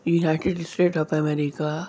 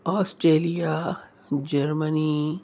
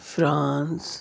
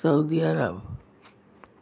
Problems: none marked